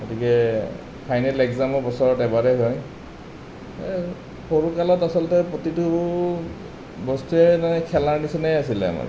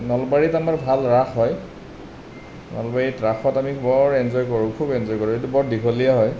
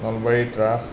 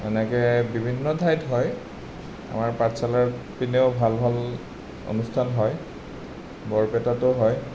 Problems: none marked